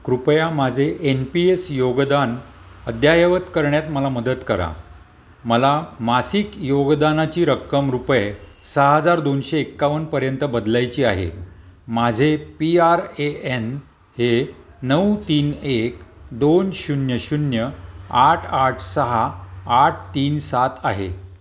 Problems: none marked